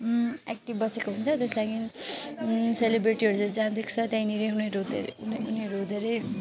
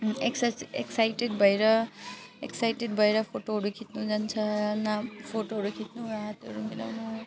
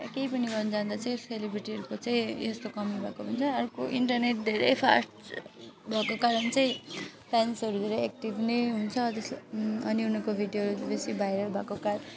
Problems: constant background noise